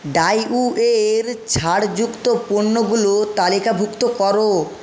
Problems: constant background noise